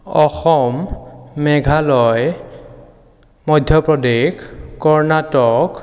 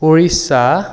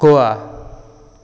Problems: none marked